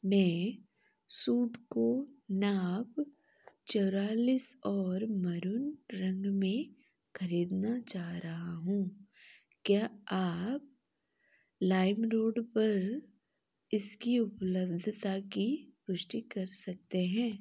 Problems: none marked